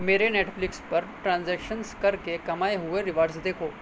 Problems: constant background noise